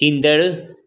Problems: none marked